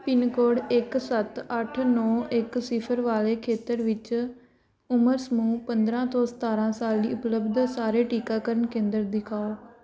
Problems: none marked